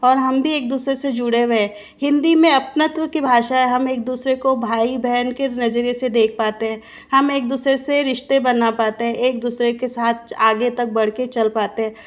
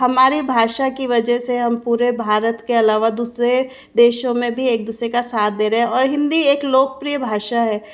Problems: background sounds at intervals